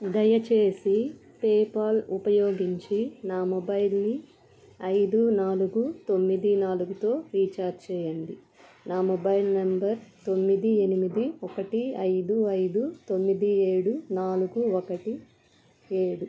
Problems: constant background noise